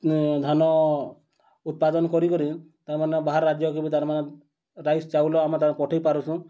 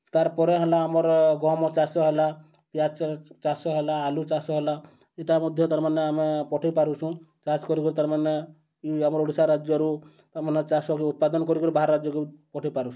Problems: none marked